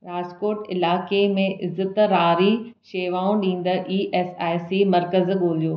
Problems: none marked